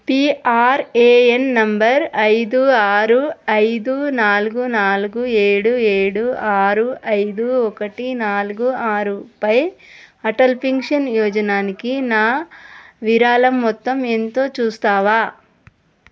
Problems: none marked